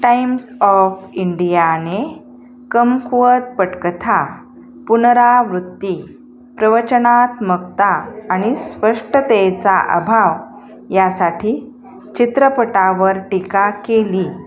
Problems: continuous background conversations